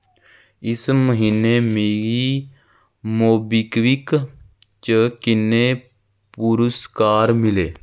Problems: none marked